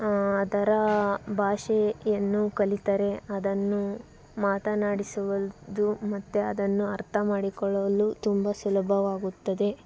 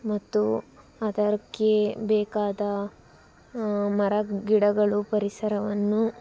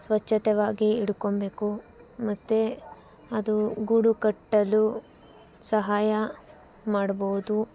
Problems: background sounds at intervals